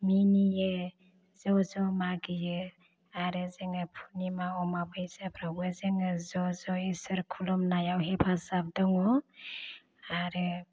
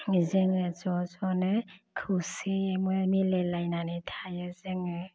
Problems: none marked